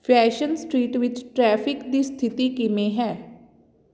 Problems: none marked